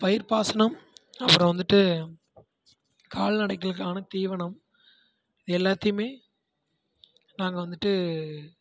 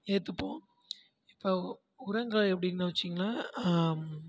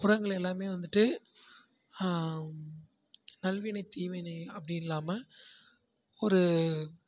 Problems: constant background noise, continuous background conversations, low volume